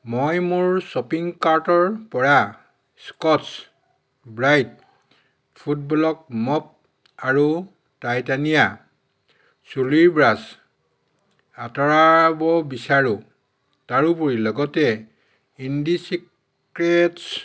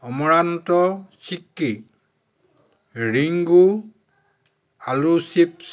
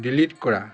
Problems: background sounds at intervals, continuous background conversations